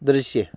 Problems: background sounds at intervals